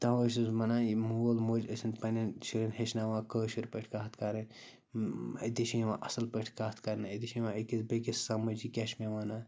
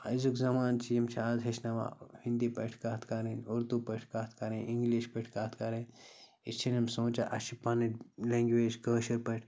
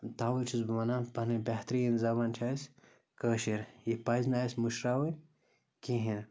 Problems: constant background noise